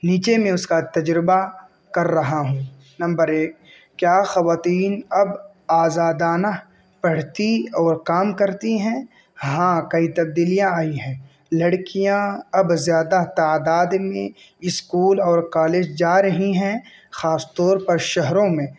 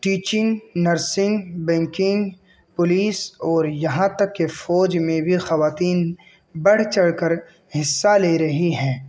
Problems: none marked